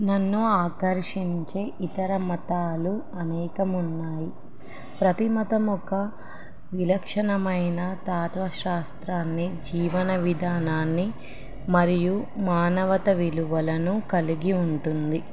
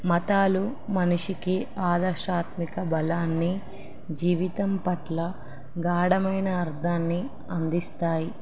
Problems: none marked